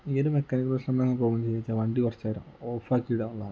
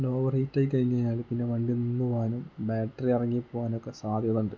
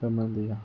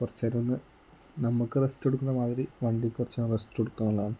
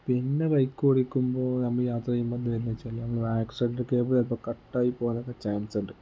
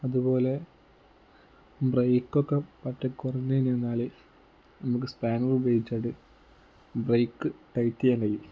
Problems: low volume